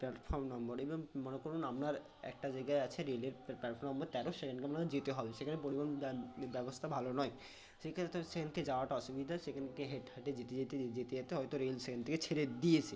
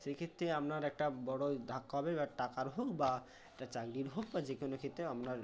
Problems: constant background noise, background conversations at intervals